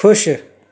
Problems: constant background noise